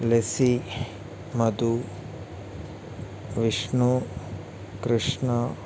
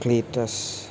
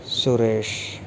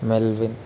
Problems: constant background noise